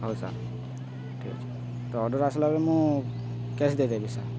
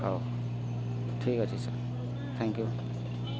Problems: constant background noise